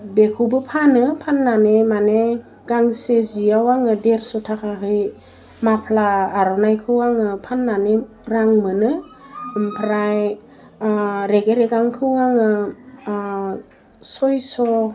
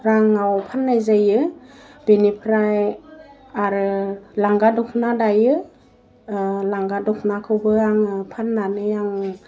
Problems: none marked